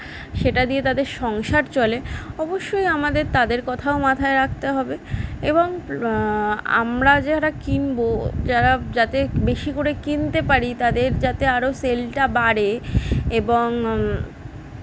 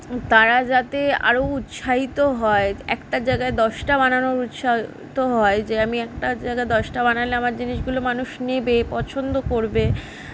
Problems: none marked